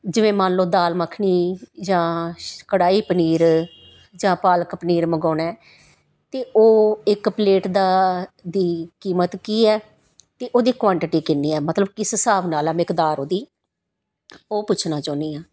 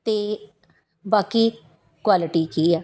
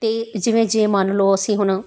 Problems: background sounds at intervals